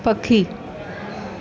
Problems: constant background noise